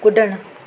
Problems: constant background noise